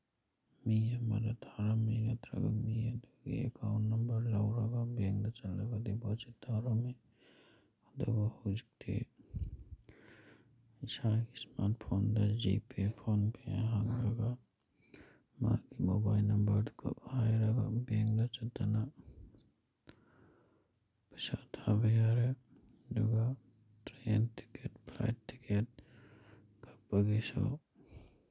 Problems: background sounds at intervals